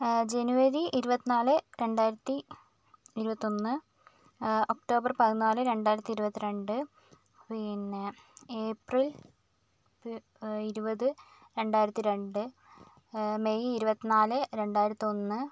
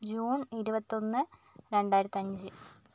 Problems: low volume